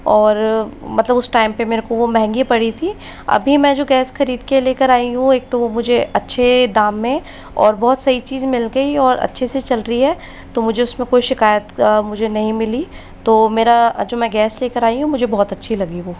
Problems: constant background noise